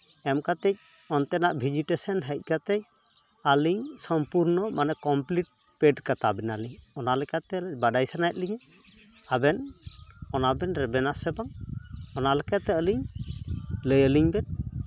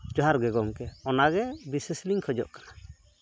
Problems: constant background noise